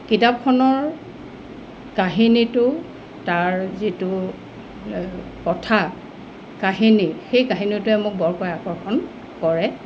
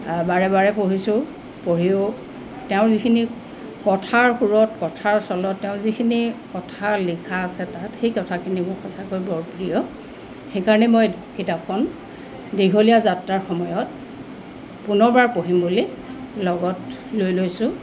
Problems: constant background noise